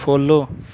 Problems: none marked